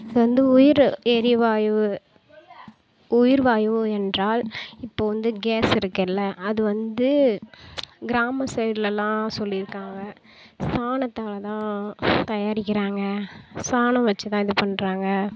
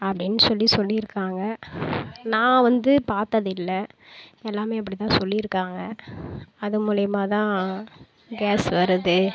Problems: none marked